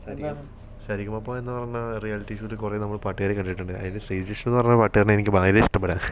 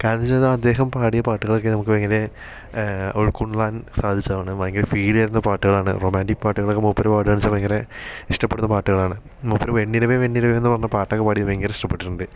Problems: background sounds at intervals